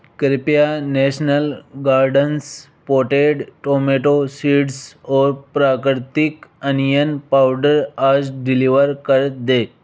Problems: constant background noise